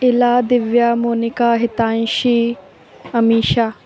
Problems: constant background noise